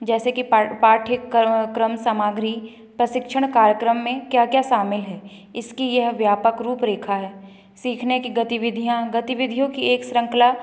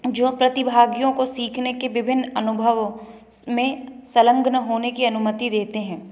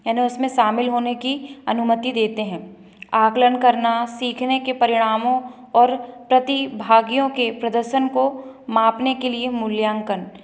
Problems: background sounds at intervals